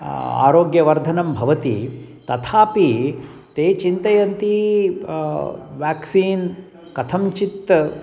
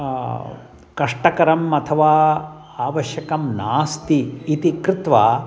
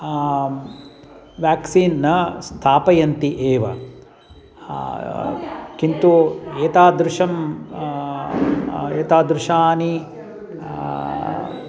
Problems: constant background noise, background conversations at intervals